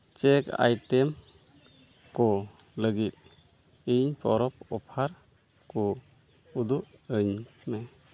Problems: none marked